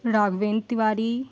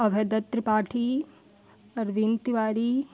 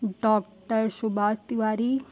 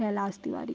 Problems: constant background noise, background conversations at intervals